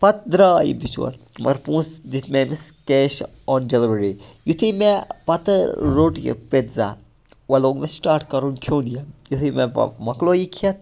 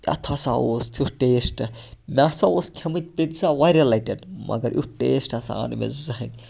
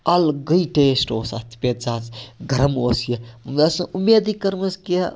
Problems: none marked